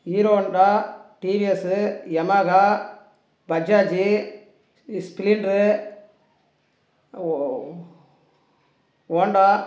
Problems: none marked